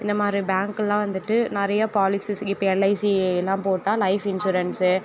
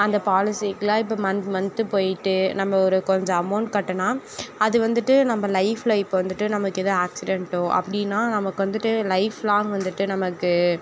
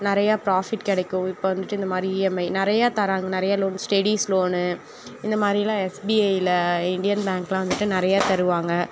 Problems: background conversations at intervals